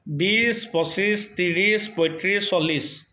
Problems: none marked